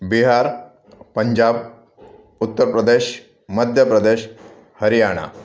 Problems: constant background noise